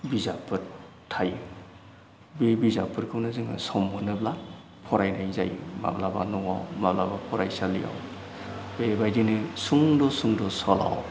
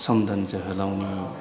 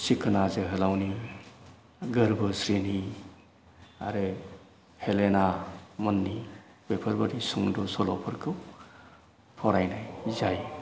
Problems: none marked